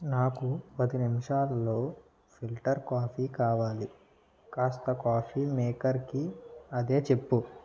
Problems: low volume